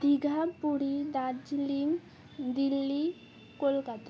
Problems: constant background noise, continuous background conversations